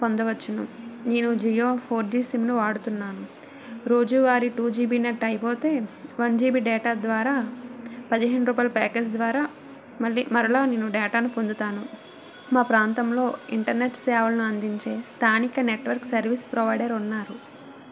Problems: constant background noise